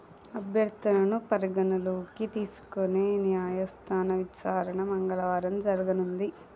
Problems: low volume